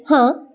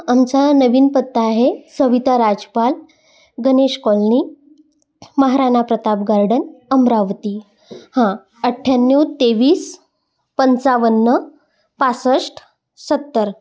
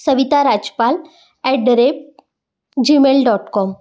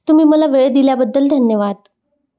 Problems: background sounds at intervals, continuous background conversations